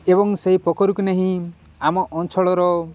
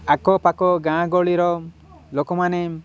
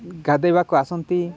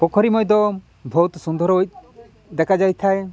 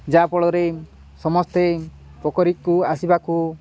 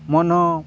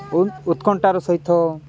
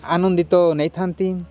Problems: none marked